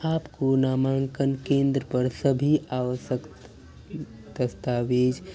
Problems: none marked